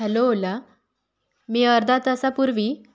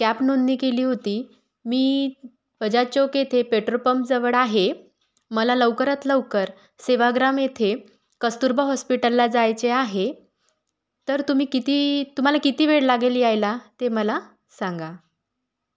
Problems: background sounds at intervals